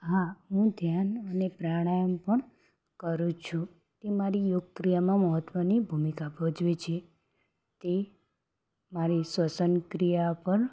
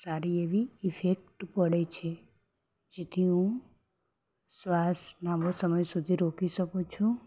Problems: background sounds at intervals